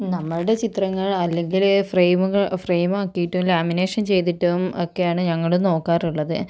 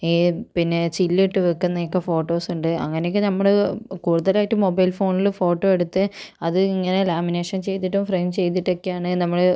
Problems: none marked